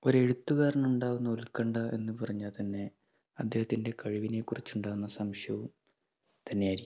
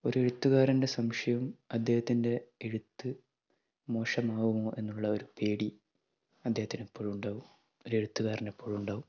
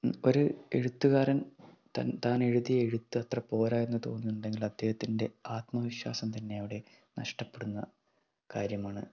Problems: background sounds at intervals, low volume